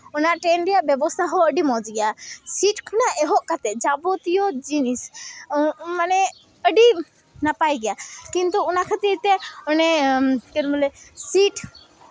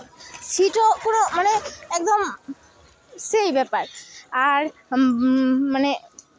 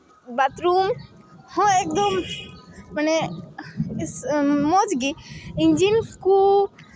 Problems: continuous background conversations